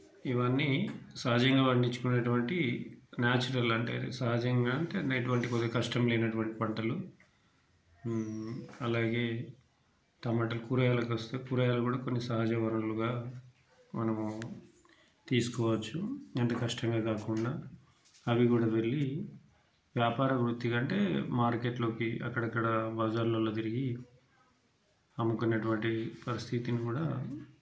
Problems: background sounds at intervals